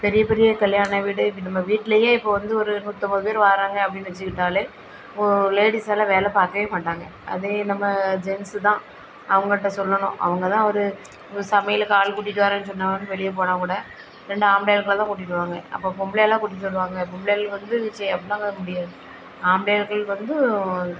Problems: constant background noise